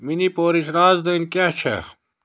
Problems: none marked